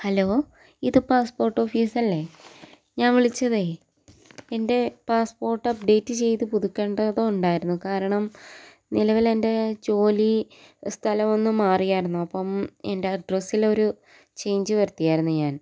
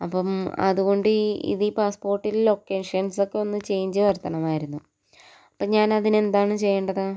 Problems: none marked